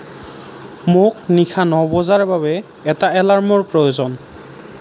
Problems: none marked